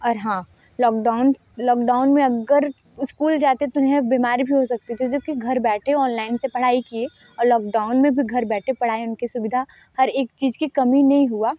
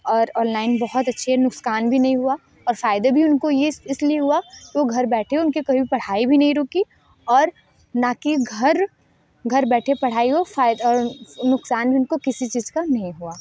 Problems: none marked